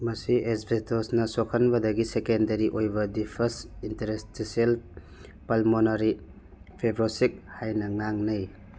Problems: none marked